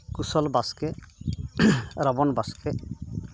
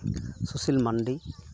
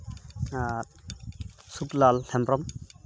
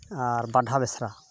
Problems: background sounds at intervals